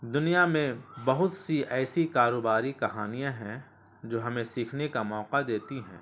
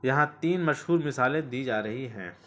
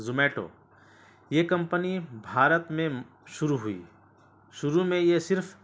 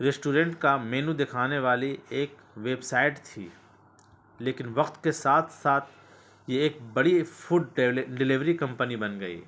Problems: constant background noise